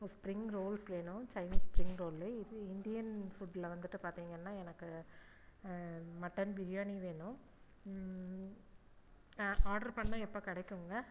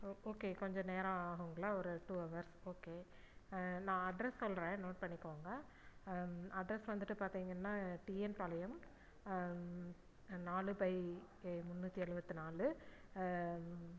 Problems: low volume